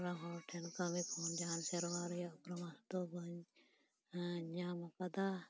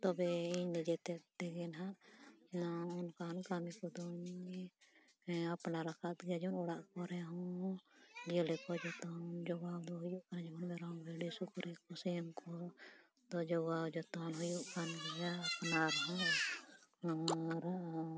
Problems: background conversations at intervals, low volume